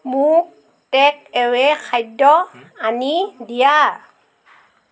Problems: none marked